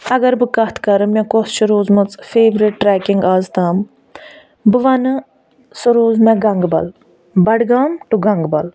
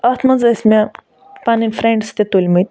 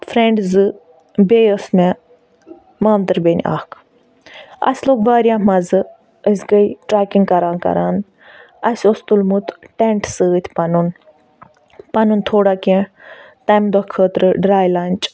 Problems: none marked